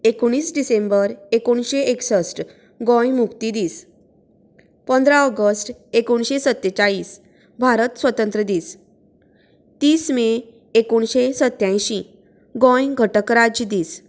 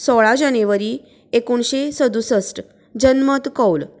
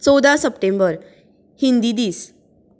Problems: constant background noise